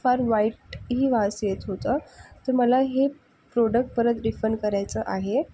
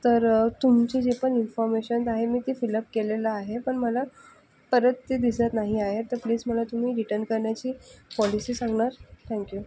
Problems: background sounds at intervals, low volume